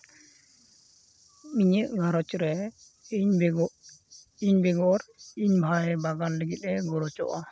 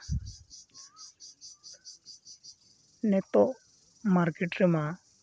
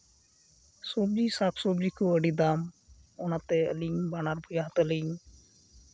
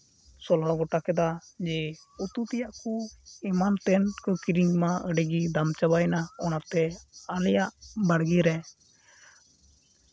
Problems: constant background noise